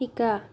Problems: none marked